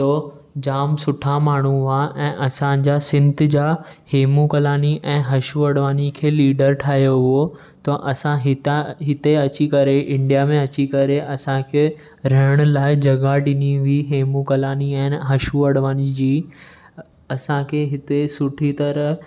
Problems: echo